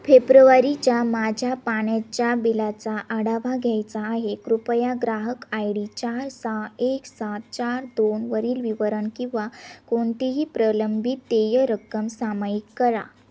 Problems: none marked